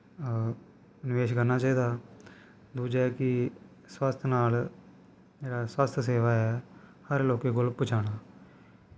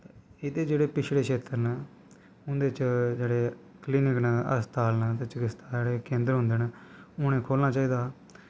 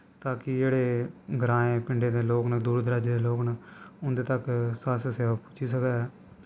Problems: constant background noise